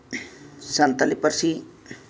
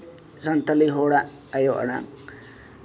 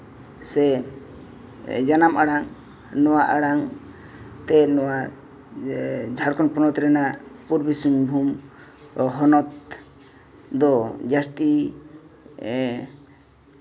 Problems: none marked